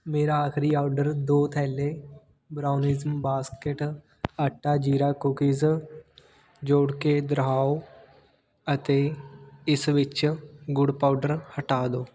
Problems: none marked